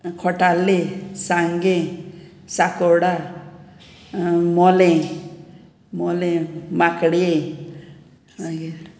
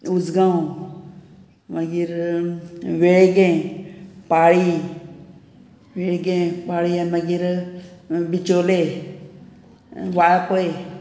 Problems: background sounds at intervals, background conversations at intervals